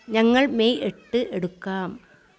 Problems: background sounds at intervals